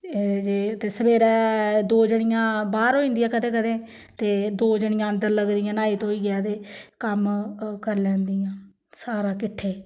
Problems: none marked